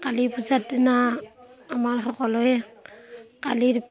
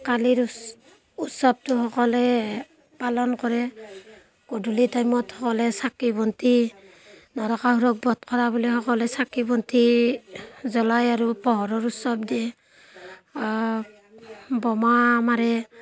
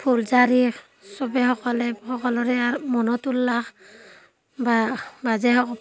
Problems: background sounds at intervals